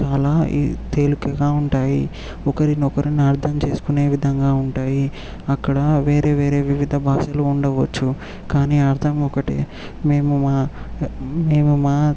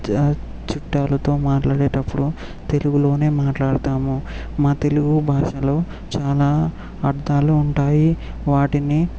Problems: background sounds at intervals